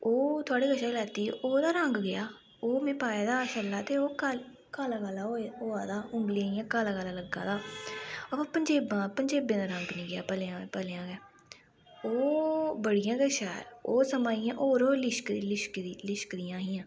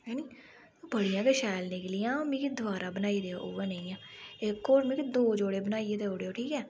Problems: background sounds at intervals